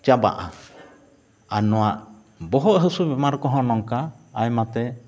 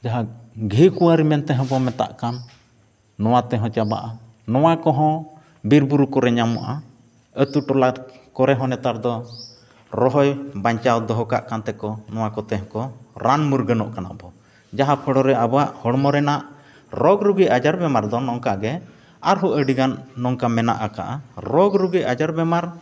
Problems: background sounds at intervals